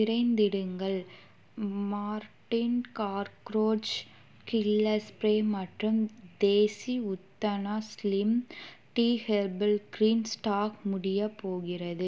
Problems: constant background noise